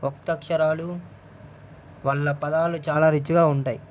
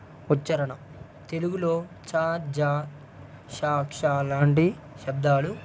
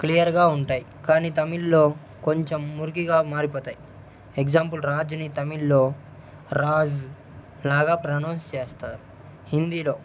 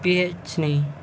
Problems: constant background noise, low volume